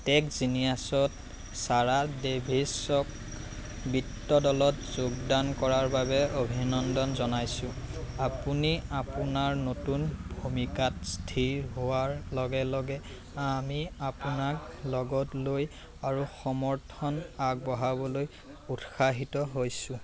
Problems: constant background noise